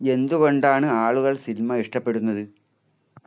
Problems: none marked